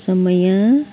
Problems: constant background noise